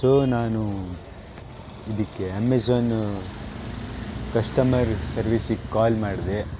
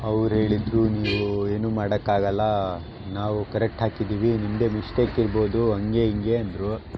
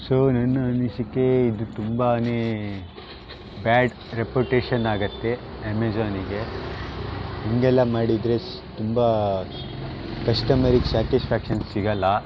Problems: constant background noise